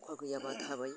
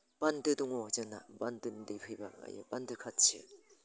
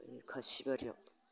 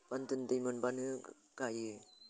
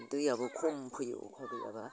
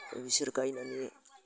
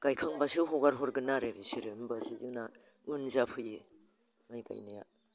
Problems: constant background noise